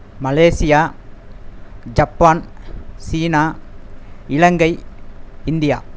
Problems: constant background noise